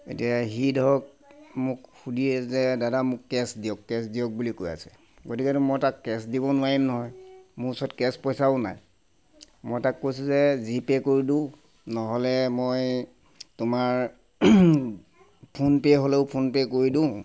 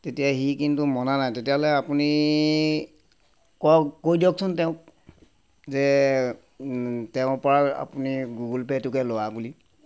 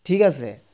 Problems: constant background noise